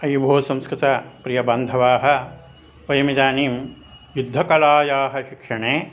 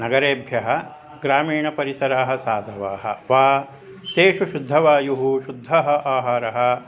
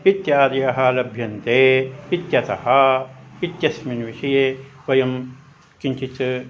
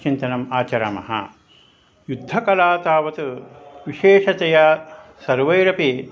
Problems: none marked